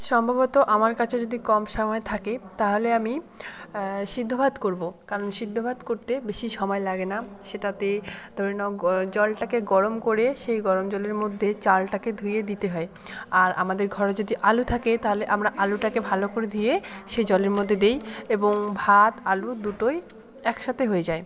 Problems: constant background noise